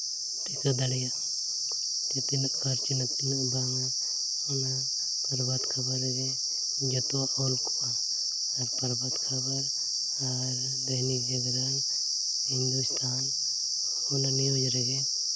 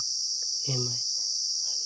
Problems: constant background noise, low volume